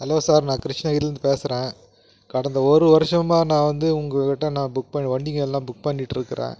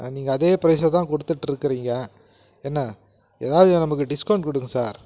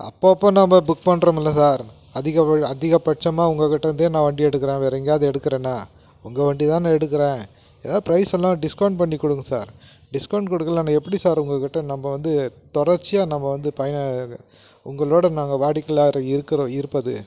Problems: none marked